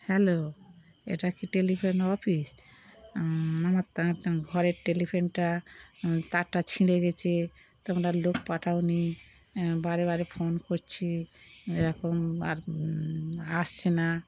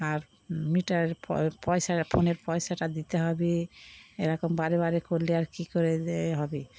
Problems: constant background noise